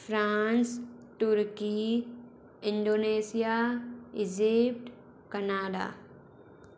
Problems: constant background noise